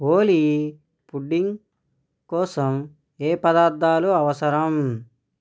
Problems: none marked